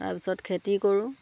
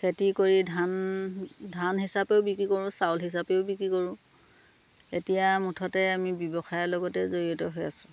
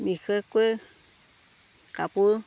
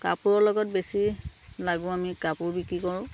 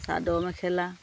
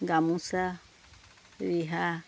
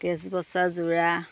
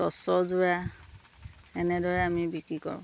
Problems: none marked